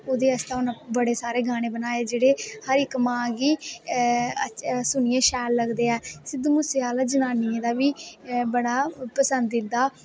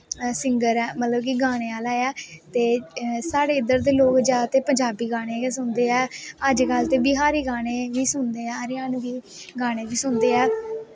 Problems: constant background noise, background conversations at intervals